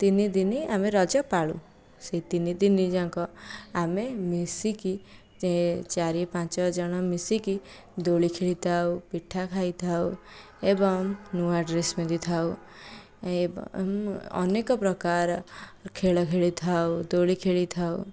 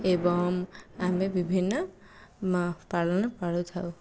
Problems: low volume